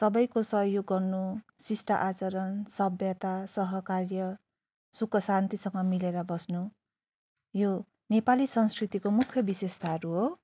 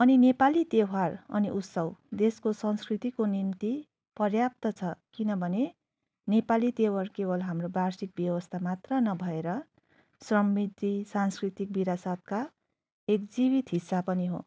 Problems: none marked